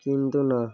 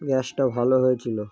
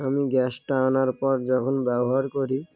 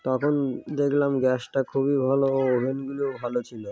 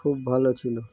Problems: background sounds at intervals